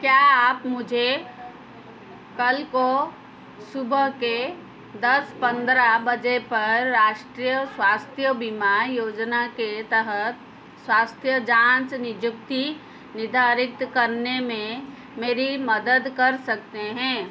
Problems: constant background noise